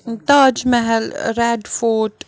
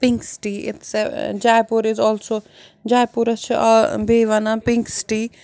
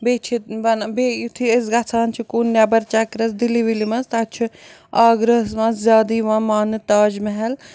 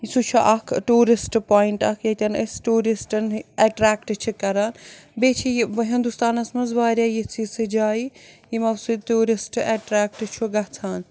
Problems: none marked